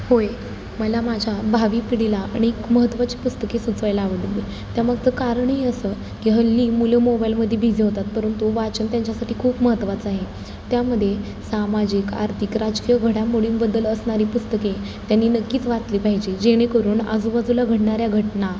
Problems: constant background noise